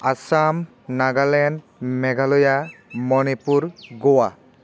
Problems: constant background noise